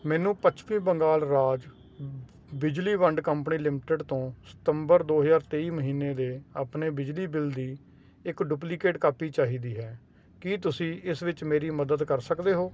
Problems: none marked